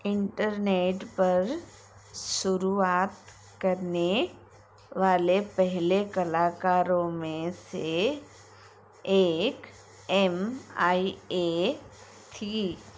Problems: constant background noise